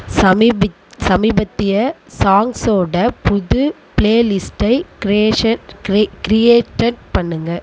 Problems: constant background noise